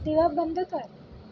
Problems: background sounds at intervals